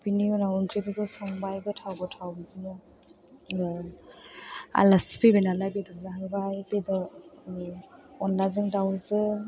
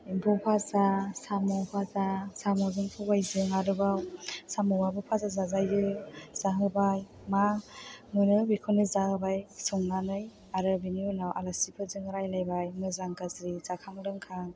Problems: background sounds at intervals